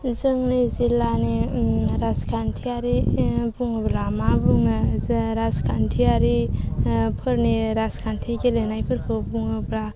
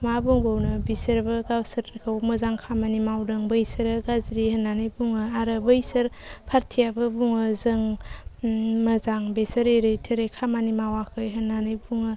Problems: low volume